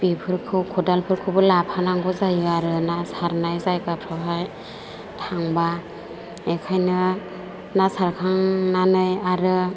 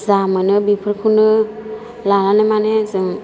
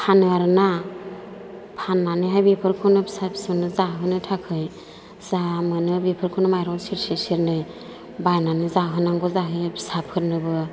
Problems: constant background noise